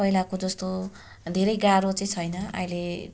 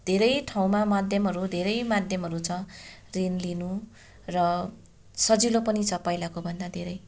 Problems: constant background noise